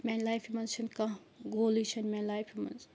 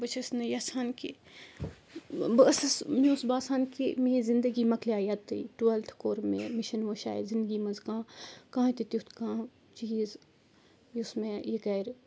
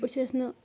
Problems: background sounds at intervals